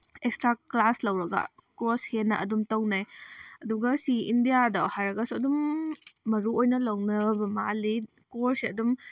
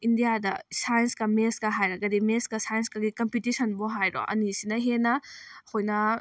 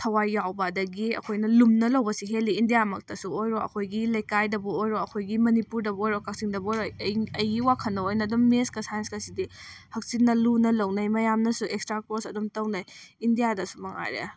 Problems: none marked